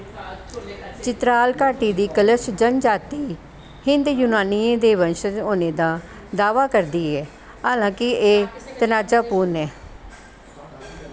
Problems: constant background noise